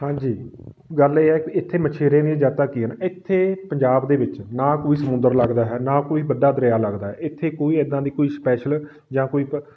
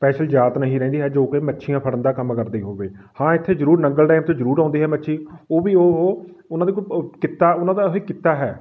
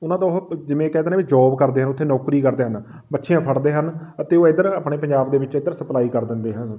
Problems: background sounds at intervals